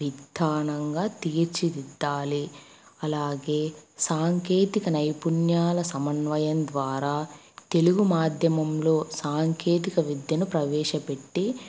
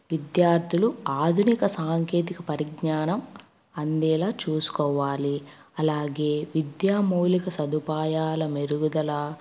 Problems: constant background noise